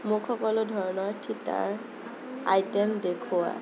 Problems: constant background noise